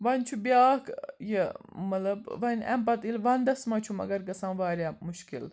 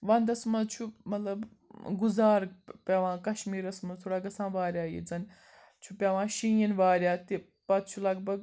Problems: background sounds at intervals